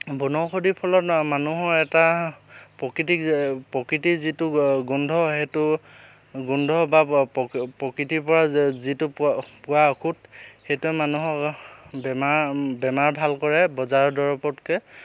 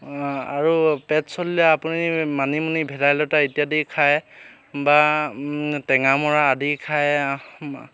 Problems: constant background noise